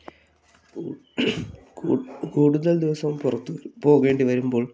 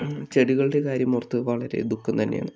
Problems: background conversations at intervals